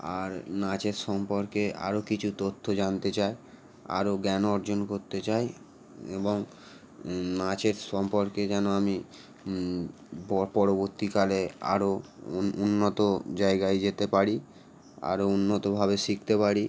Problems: constant background noise